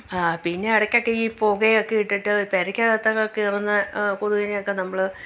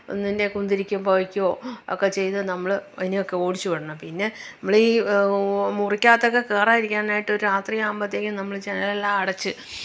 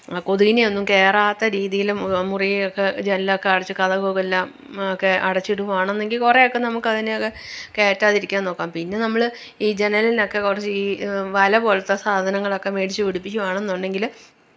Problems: none marked